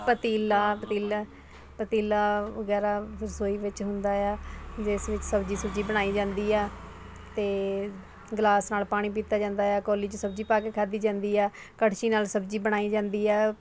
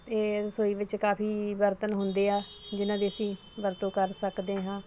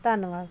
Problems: constant background noise, background conversations at intervals